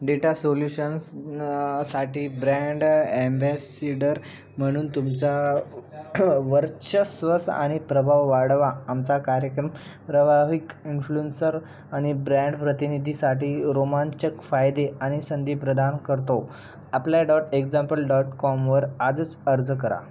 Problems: constant background noise, background conversations at intervals